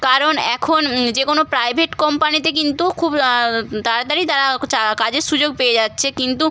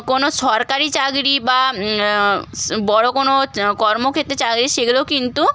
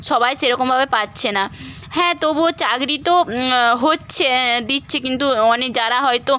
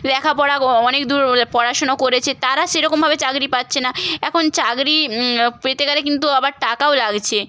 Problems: background sounds at intervals